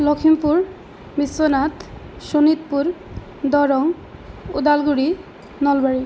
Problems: none marked